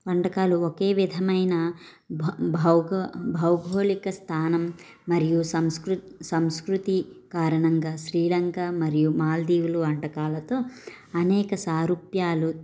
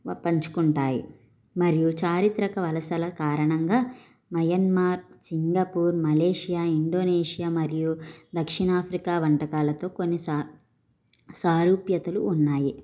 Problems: background sounds at intervals